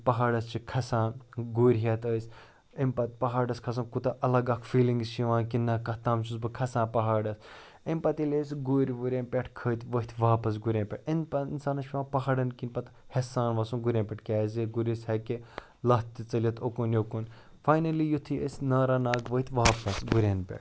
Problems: none marked